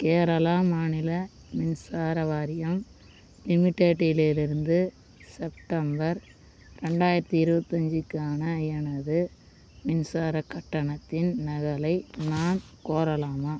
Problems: constant background noise